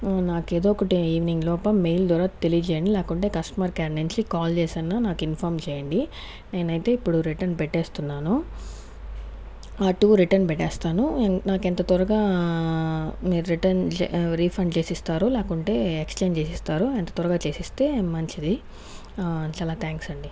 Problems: background sounds at intervals